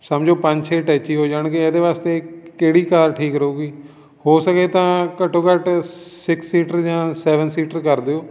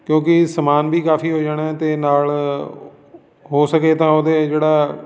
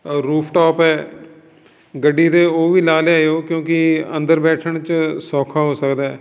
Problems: background sounds at intervals, background conversations at intervals